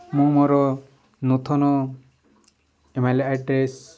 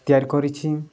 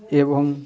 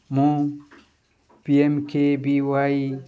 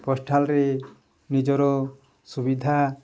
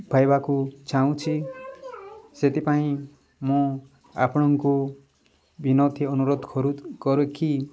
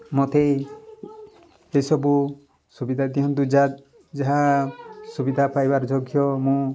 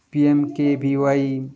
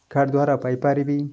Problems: constant background noise, background conversations at intervals